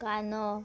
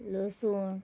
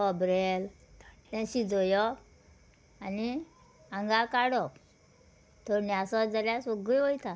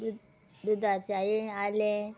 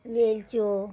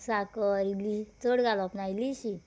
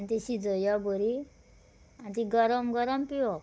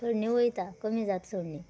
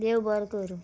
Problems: none marked